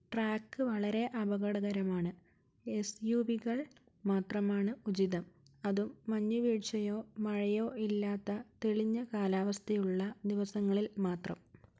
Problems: low volume